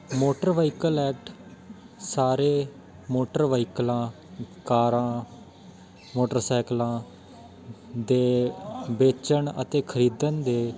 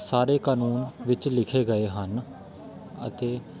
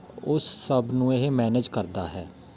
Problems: constant background noise, continuous background conversations